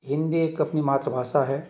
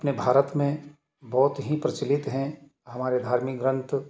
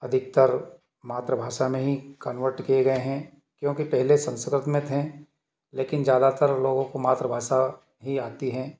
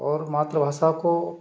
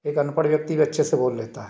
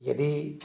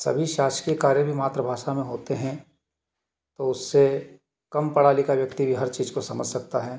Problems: background sounds at intervals